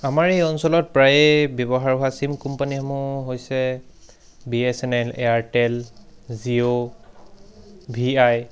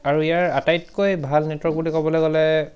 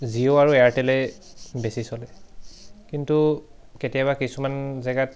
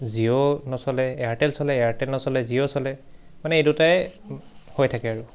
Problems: background sounds at intervals